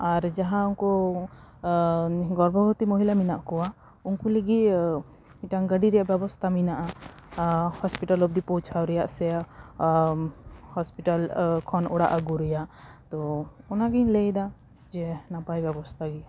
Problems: background sounds at intervals